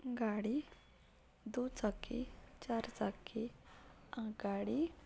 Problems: background sounds at intervals